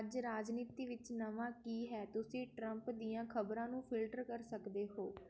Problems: background conversations at intervals